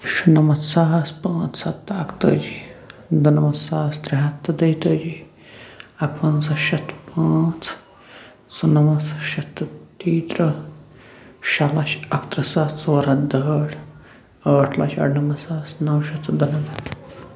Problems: constant background noise